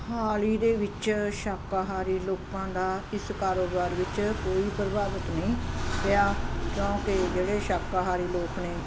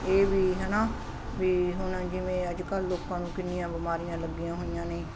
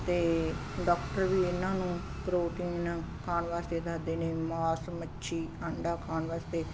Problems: constant background noise